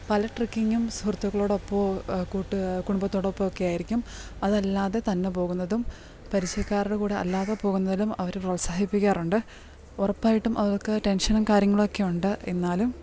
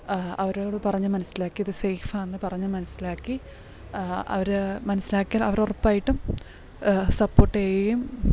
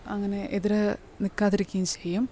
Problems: background sounds at intervals